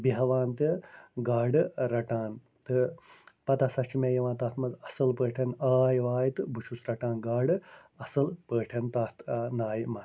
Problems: none marked